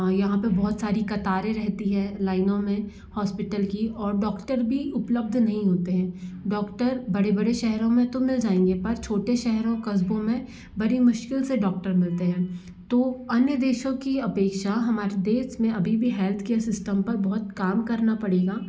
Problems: constant background noise